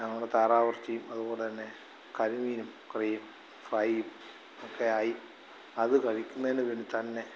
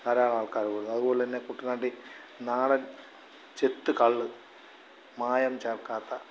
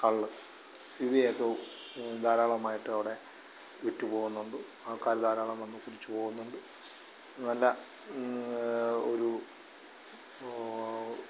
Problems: none marked